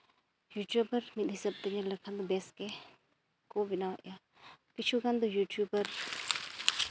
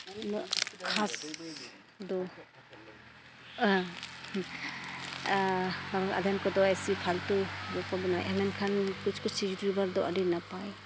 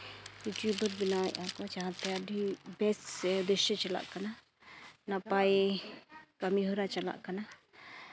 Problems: none marked